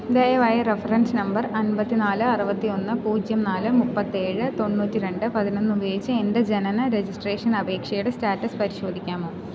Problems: none marked